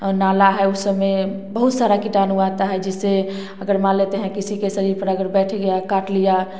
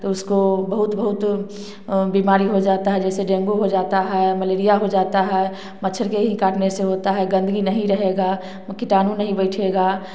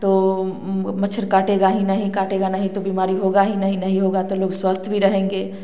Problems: none marked